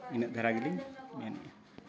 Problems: constant background noise